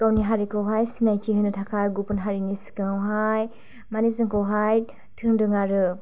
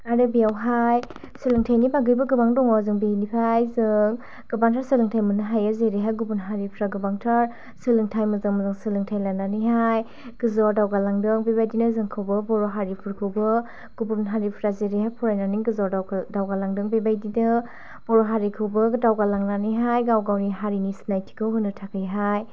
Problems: none marked